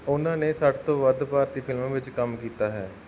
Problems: background sounds at intervals, background conversations at intervals